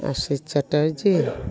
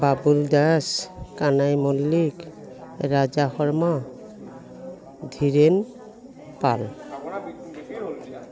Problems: background sounds at intervals